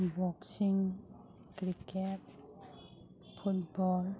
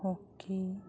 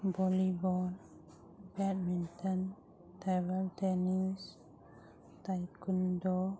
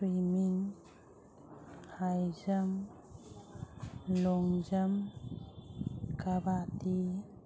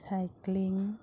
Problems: background sounds at intervals, background conversations at intervals